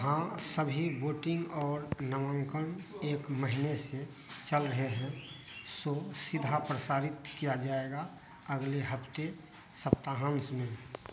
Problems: constant background noise